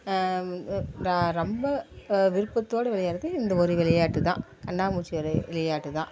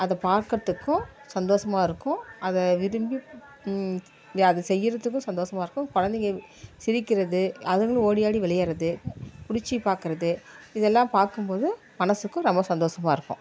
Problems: constant background noise